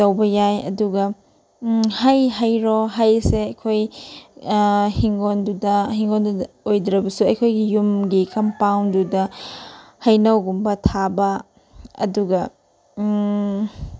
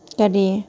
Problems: background sounds at intervals